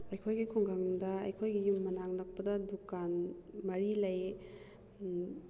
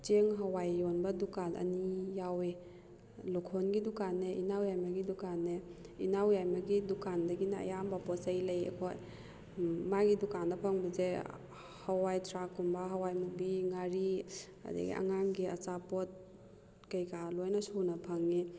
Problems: none marked